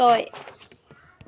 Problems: background sounds at intervals